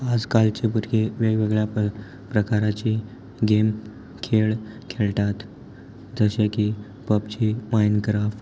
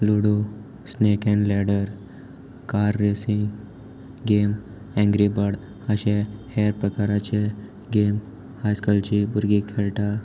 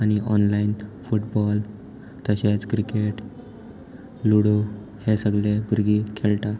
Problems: none marked